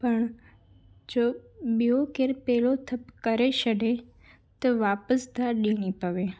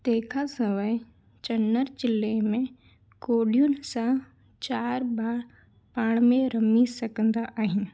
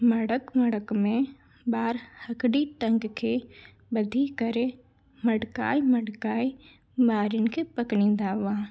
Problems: none marked